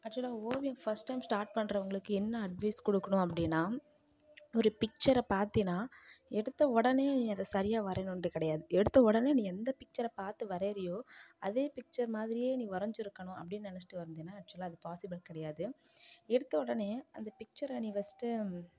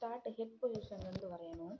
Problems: low volume